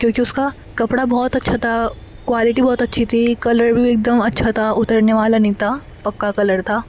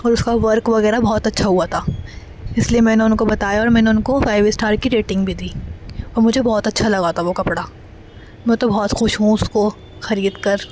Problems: constant background noise